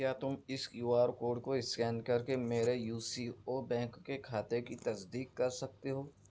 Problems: none marked